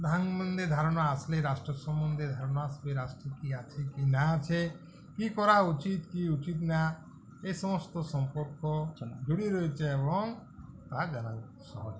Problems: none marked